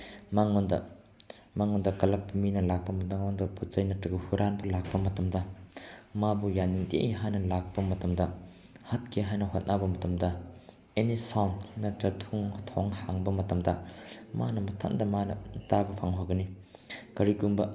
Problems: none marked